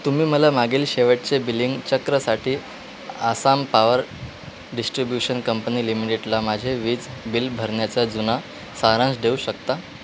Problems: constant background noise